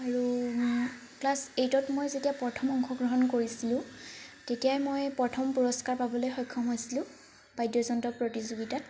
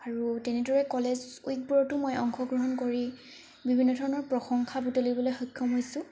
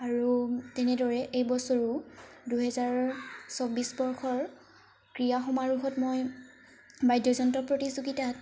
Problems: constant background noise